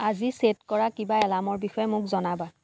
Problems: none marked